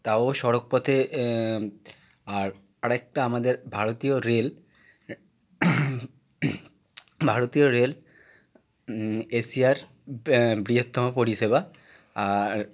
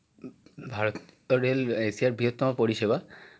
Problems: background sounds at intervals